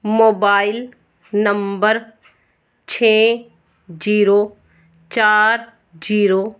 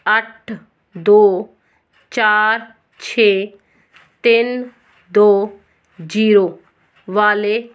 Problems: none marked